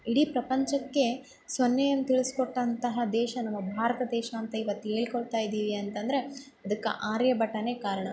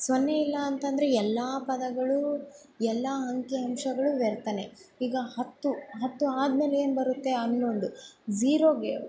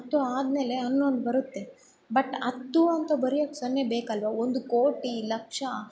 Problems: none marked